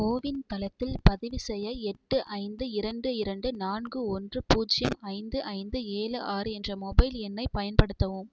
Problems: background sounds at intervals